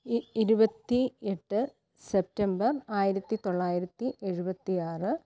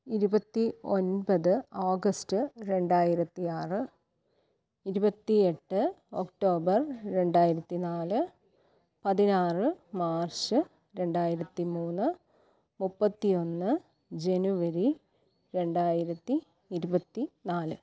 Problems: low volume